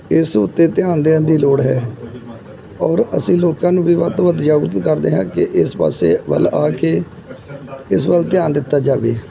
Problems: background sounds at intervals